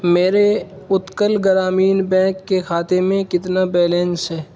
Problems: constant background noise